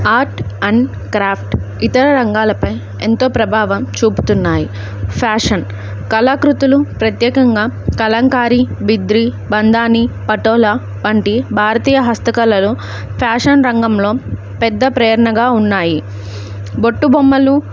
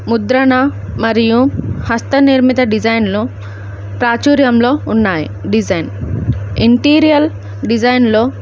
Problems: none marked